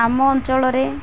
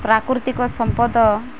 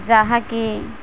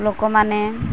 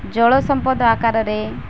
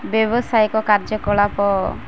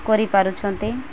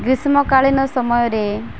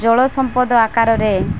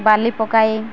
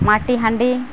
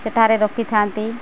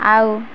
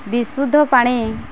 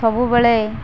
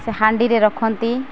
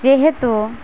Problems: constant background noise